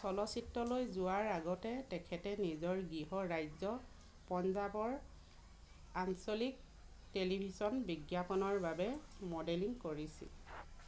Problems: background sounds at intervals, background conversations at intervals